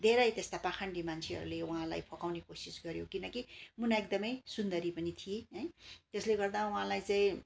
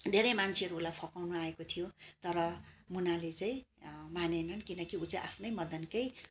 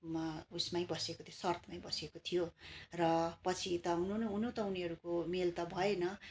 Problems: constant background noise